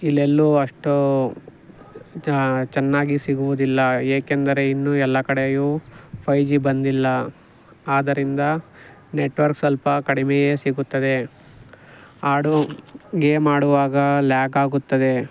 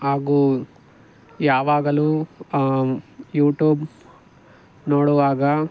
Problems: none marked